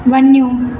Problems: constant background noise, echo